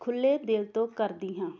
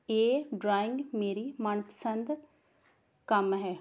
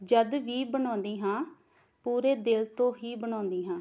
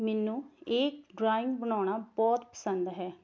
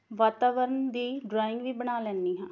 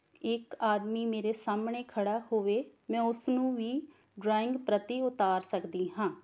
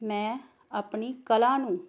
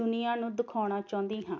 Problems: background sounds at intervals